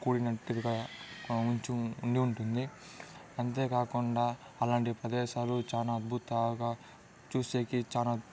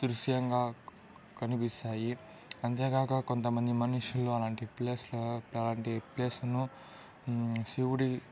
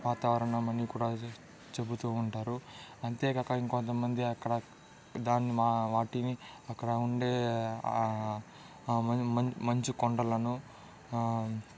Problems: background conversations at intervals, low volume